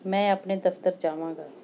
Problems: background sounds at intervals